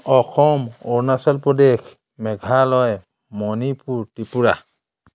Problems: none marked